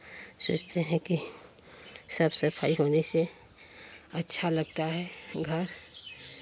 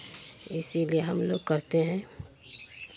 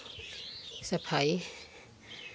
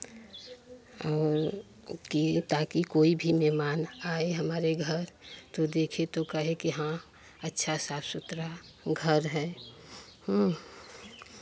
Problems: constant background noise, background conversations at intervals